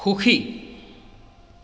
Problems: echo